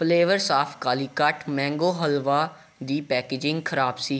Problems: none marked